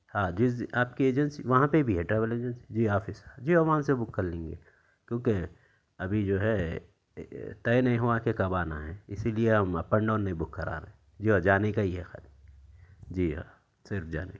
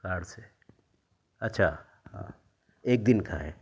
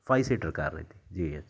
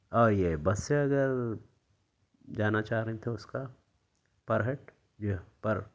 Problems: background sounds at intervals, low volume